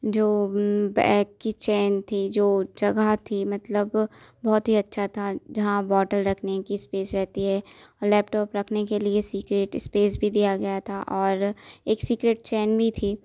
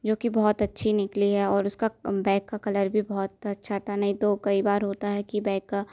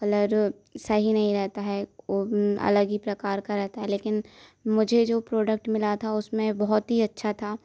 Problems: constant background noise